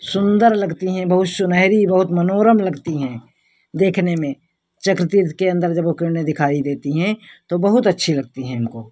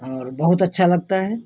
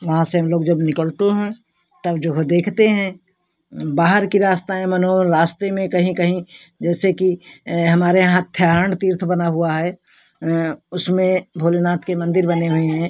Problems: none marked